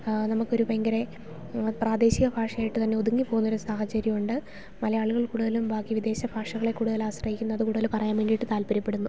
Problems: background sounds at intervals